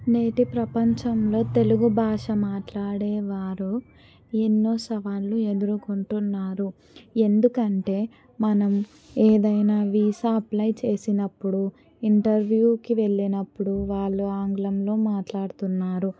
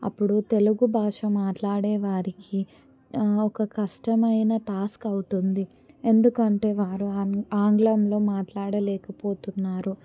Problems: none marked